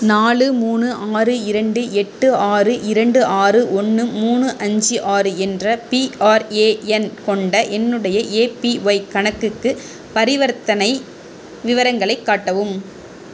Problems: constant background noise